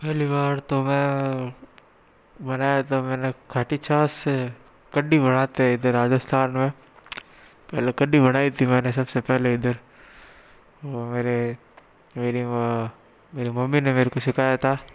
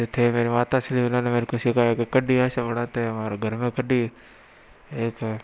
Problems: none marked